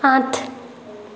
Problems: constant background noise